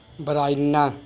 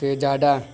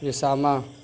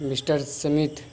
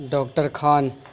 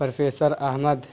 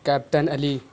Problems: constant background noise